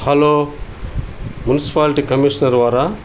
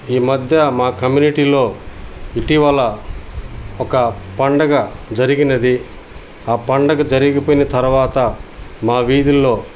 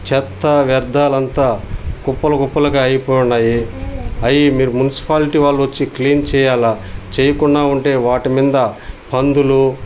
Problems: background sounds at intervals